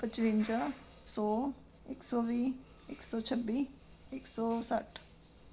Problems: background sounds at intervals